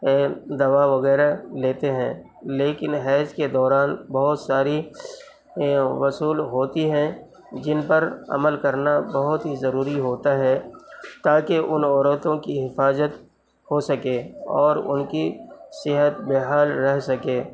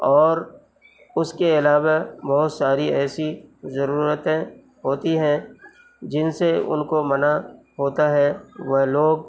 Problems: background sounds at intervals